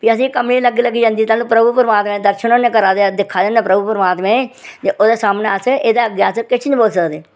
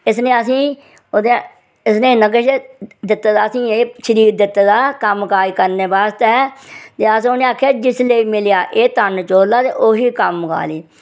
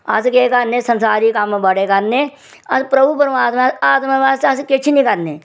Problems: none marked